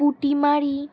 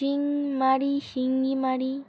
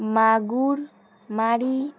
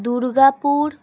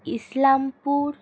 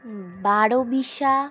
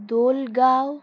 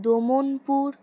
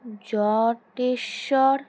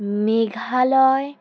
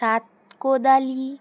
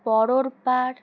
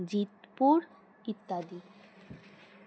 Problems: constant background noise